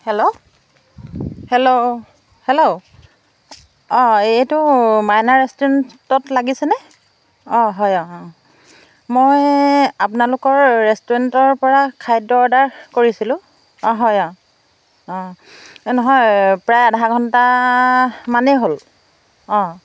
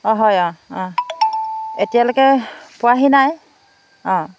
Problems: background sounds at intervals